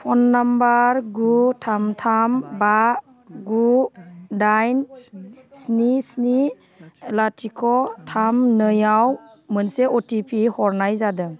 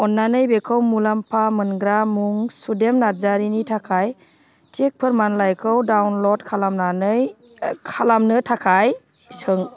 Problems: none marked